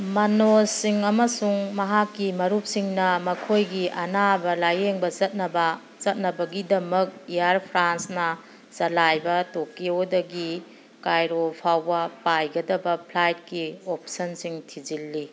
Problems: background sounds at intervals